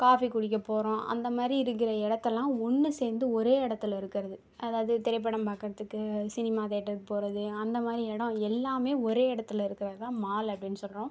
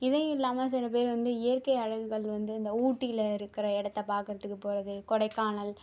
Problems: none marked